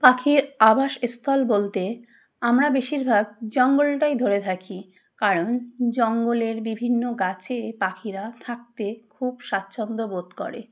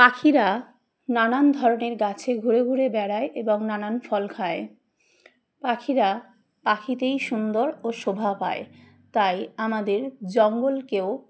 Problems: background sounds at intervals